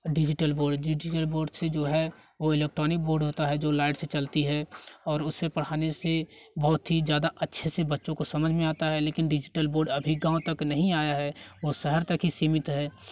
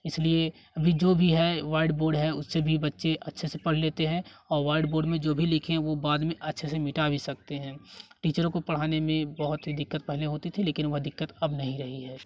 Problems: none marked